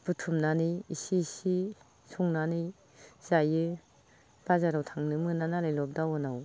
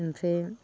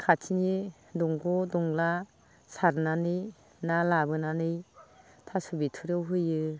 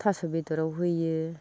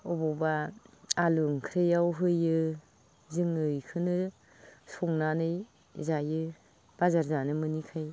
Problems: low volume